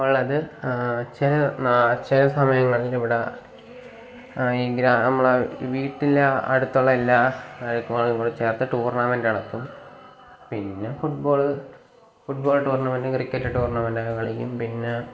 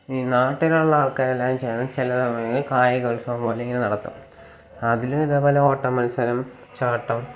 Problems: constant background noise